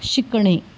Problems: background sounds at intervals